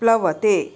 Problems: none marked